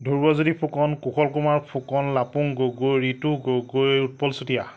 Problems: none marked